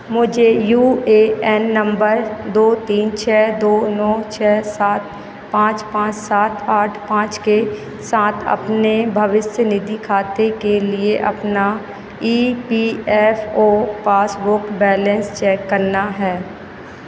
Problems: constant background noise